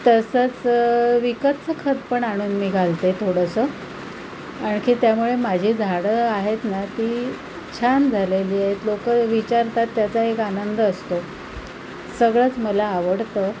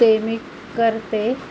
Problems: constant background noise